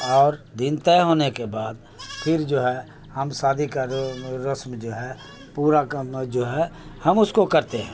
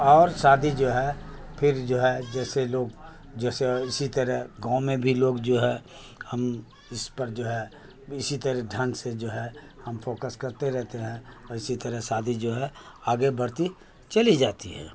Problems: constant background noise